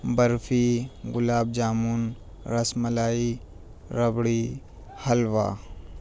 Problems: none marked